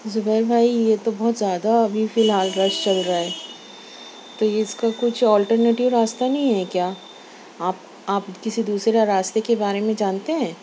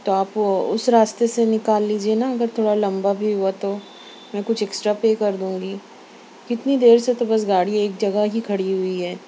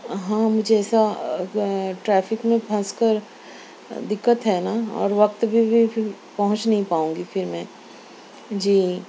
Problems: none marked